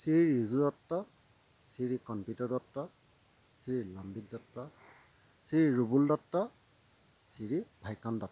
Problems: constant background noise, low volume